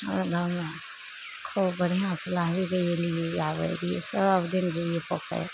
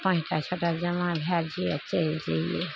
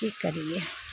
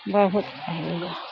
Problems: none marked